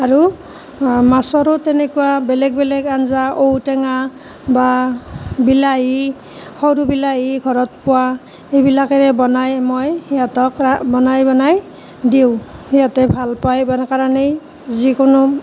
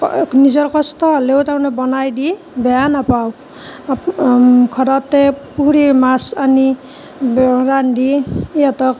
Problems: constant background noise